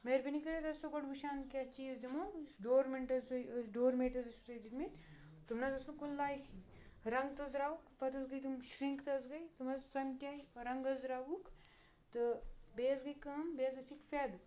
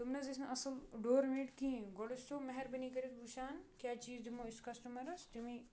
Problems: background sounds at intervals